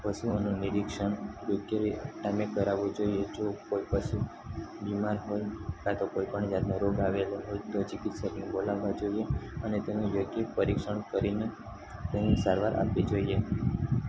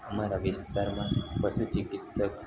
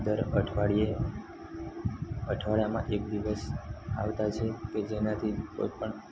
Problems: constant background noise